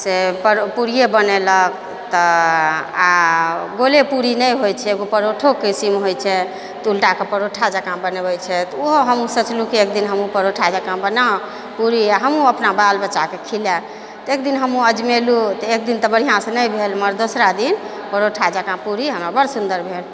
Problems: none marked